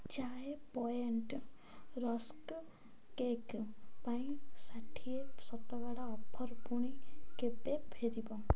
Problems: none marked